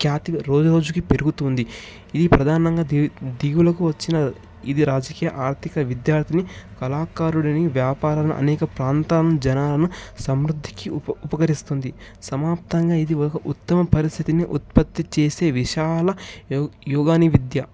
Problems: background sounds at intervals